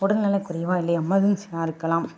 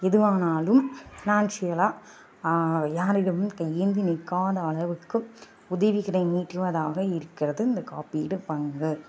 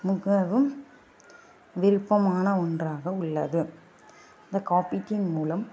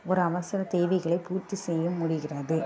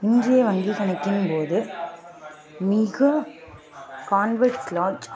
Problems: constant background noise, background conversations at intervals